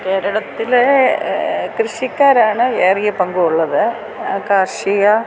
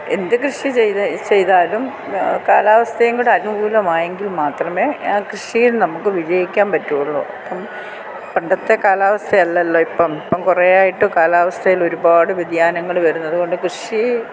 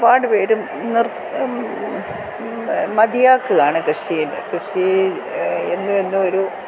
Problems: constant background noise